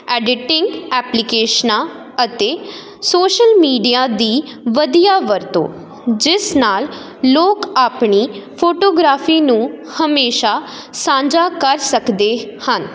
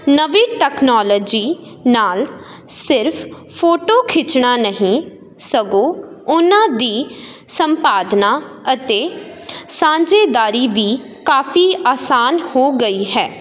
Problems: none marked